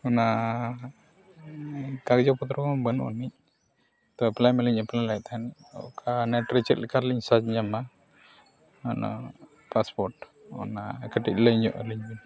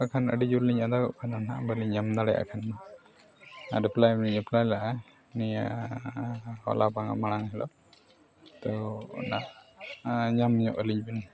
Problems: background sounds at intervals